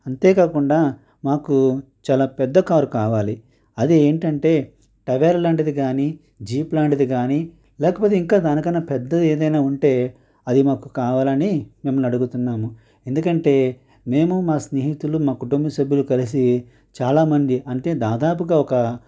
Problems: constant background noise